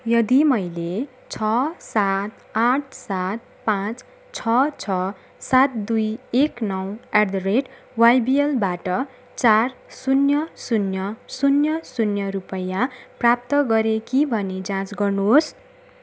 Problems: none marked